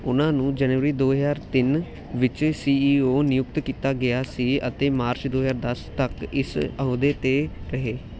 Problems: none marked